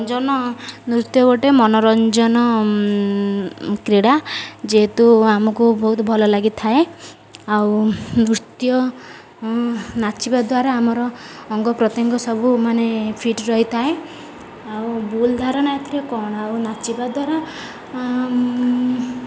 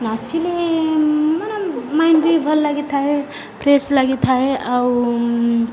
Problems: none marked